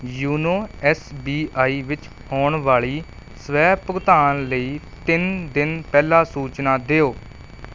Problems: none marked